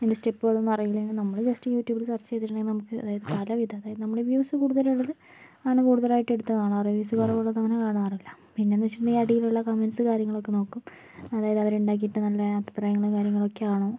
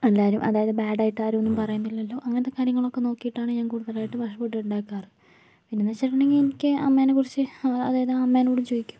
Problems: background sounds at intervals, low volume